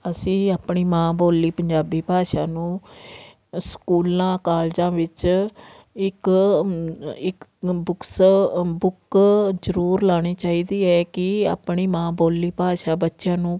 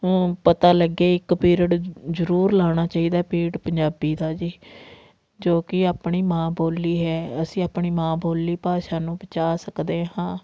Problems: none marked